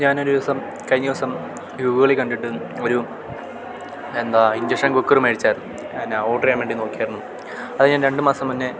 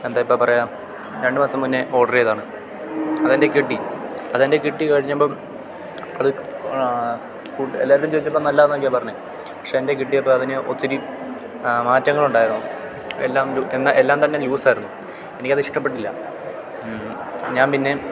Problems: constant background noise